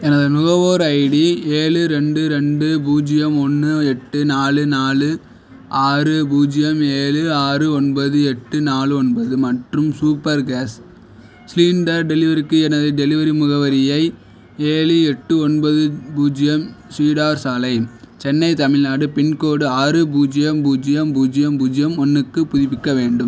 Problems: none marked